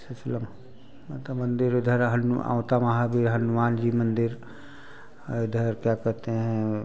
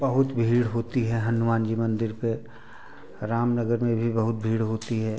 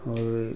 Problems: background sounds at intervals, continuous background conversations